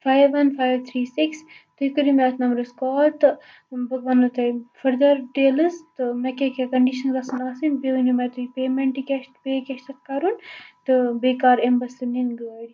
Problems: constant background noise, low volume